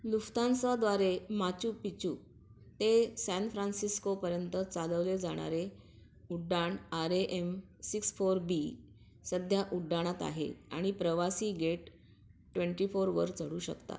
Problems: background sounds at intervals